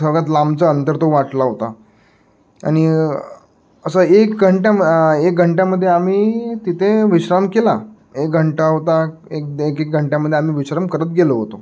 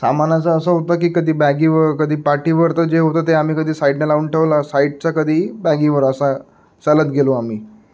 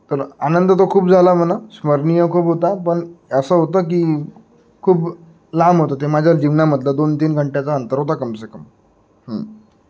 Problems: background sounds at intervals